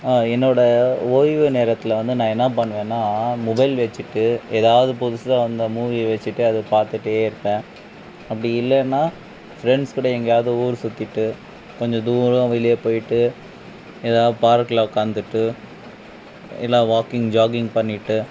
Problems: background sounds at intervals